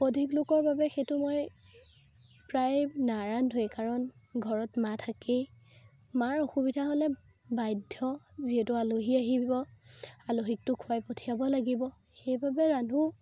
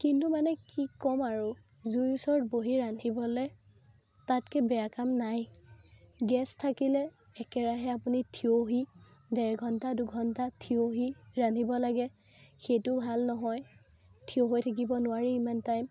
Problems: constant background noise